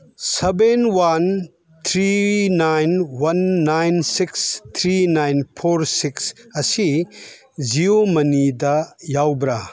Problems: background sounds at intervals